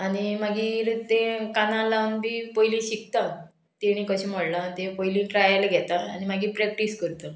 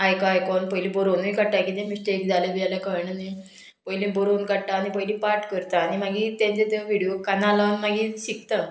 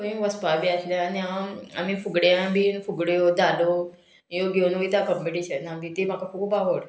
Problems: background sounds at intervals